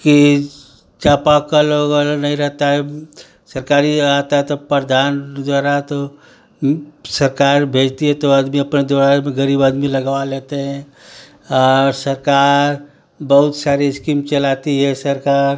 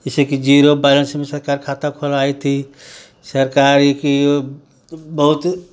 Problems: none marked